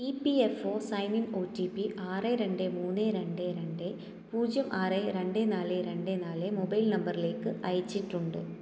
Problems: low volume